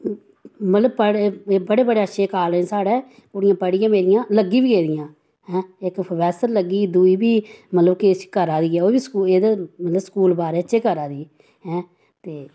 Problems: none marked